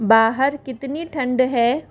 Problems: constant background noise